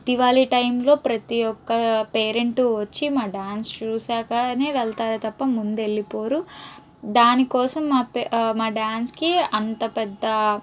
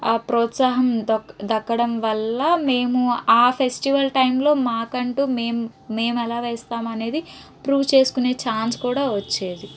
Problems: none marked